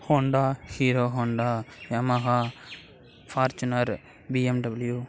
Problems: constant background noise